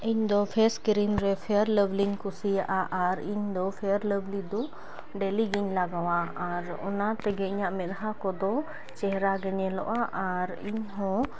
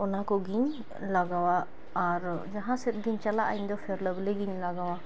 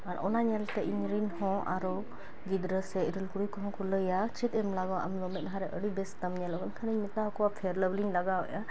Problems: background sounds at intervals